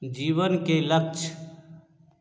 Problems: none marked